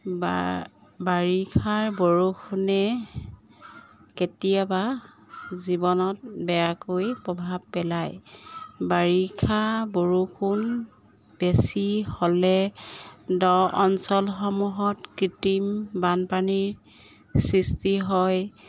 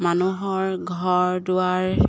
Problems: background sounds at intervals